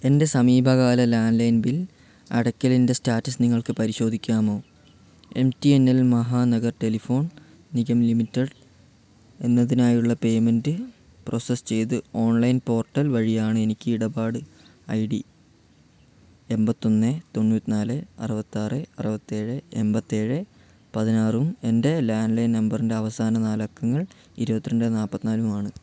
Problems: none marked